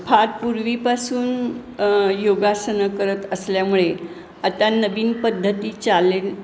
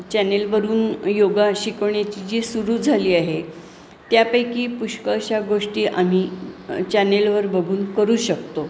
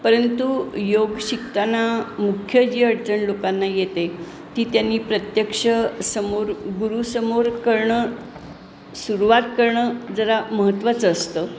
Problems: background sounds at intervals, background conversations at intervals